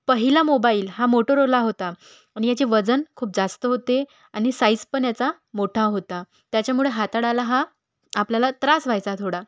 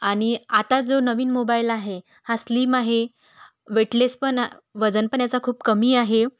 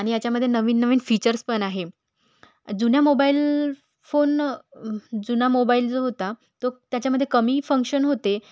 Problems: background sounds at intervals